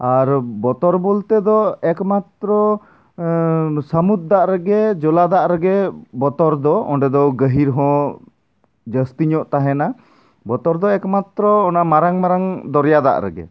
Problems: background sounds at intervals